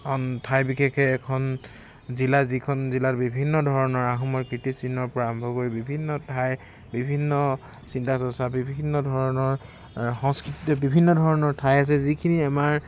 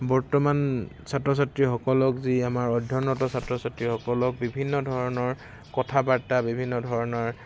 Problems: constant background noise, background conversations at intervals